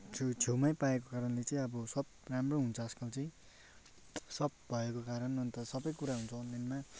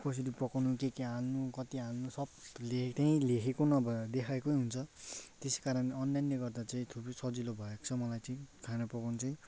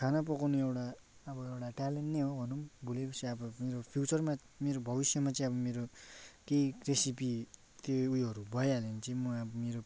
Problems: background sounds at intervals